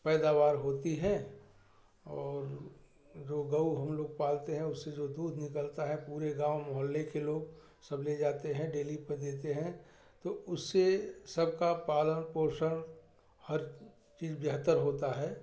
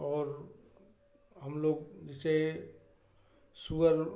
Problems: none marked